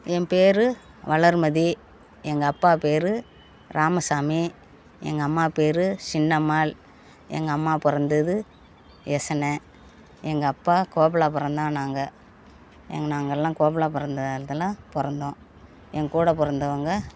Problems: none marked